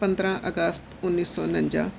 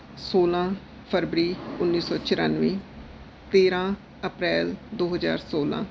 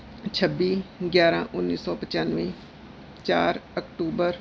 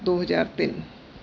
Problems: none marked